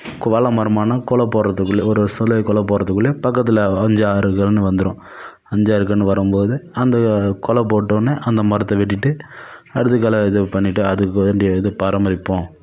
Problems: none marked